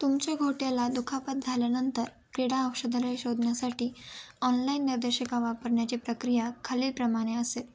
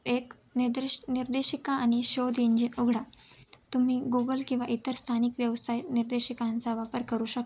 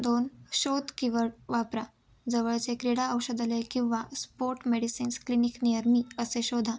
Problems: constant background noise, background conversations at intervals